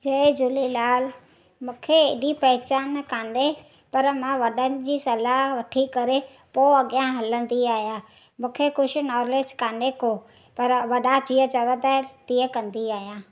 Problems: background sounds at intervals